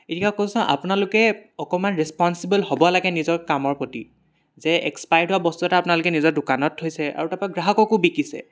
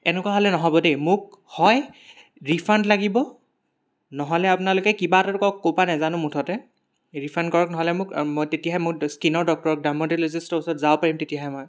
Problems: none marked